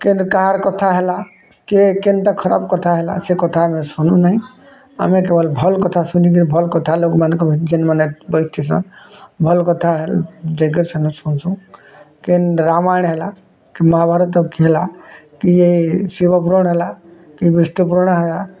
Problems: constant background noise, continuous background conversations